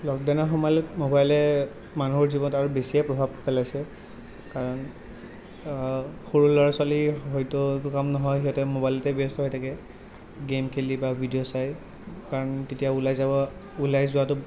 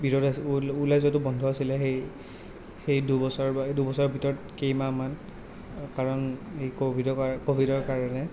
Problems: none marked